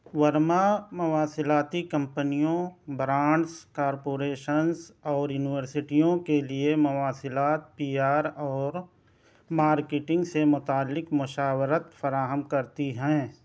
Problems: none marked